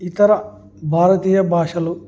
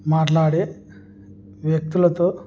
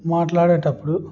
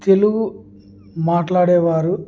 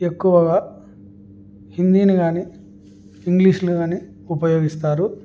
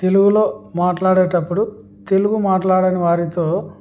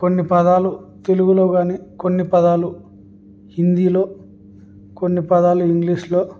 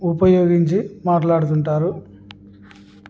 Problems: none marked